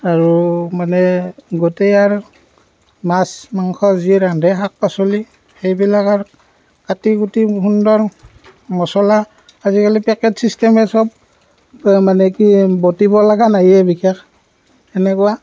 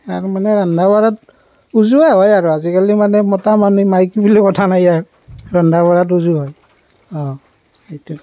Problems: background sounds at intervals